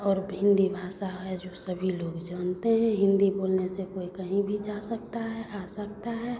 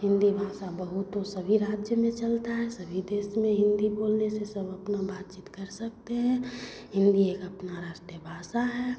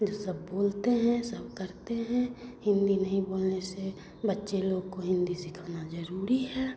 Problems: constant background noise, continuous background conversations